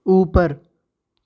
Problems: background sounds at intervals